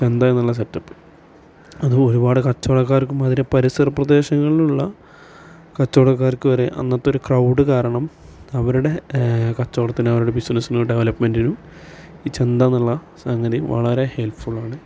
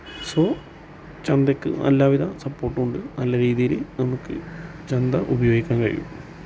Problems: constant background noise